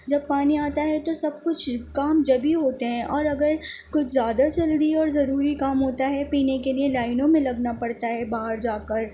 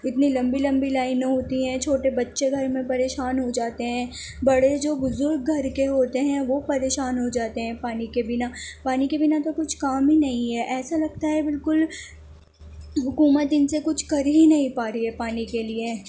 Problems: constant background noise